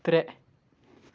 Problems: none marked